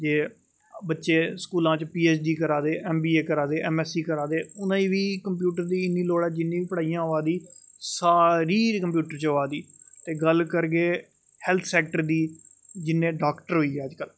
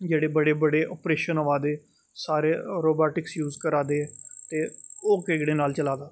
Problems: none marked